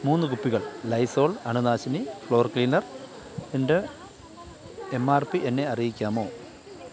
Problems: continuous background conversations